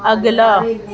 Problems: constant background noise